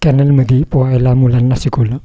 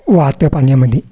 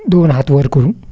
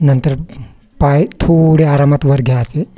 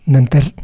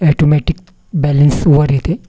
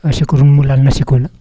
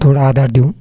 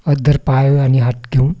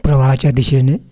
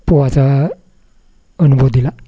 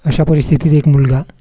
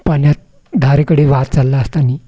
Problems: none marked